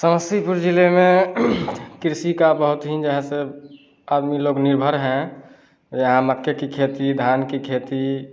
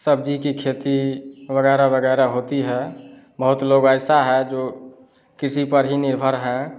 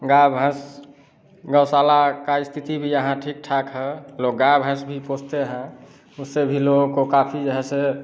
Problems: none marked